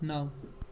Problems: constant background noise